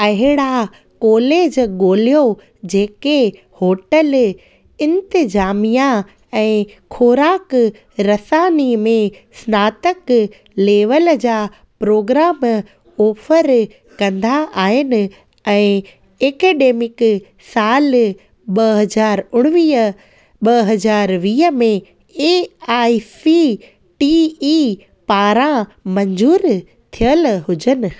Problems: background sounds at intervals